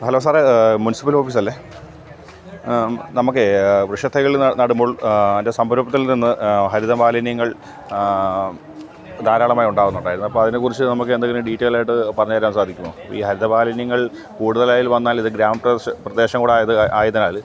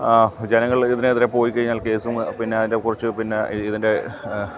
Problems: constant background noise